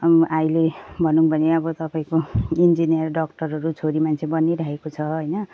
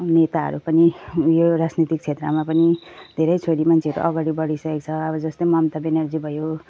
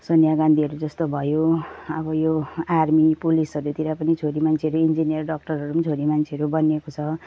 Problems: none marked